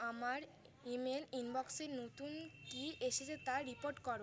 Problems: constant background noise